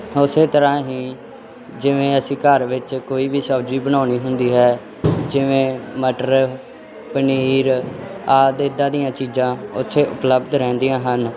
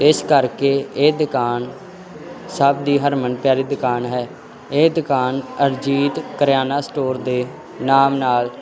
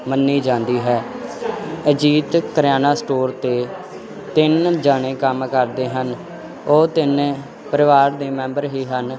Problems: constant background noise